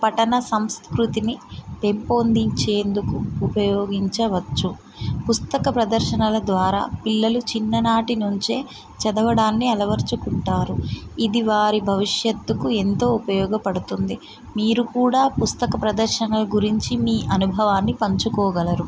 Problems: constant background noise